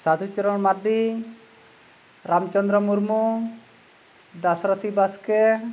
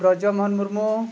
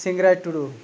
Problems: none marked